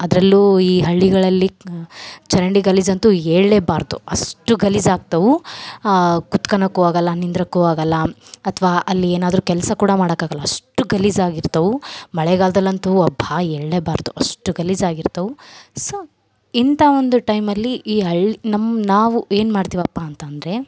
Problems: background sounds at intervals